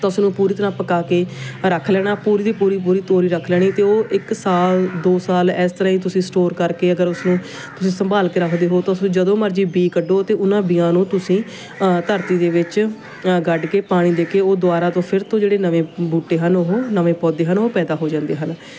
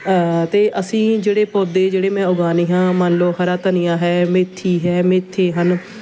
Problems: none marked